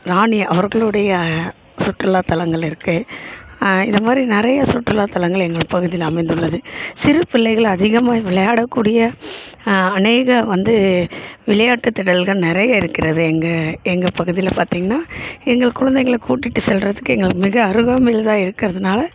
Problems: constant background noise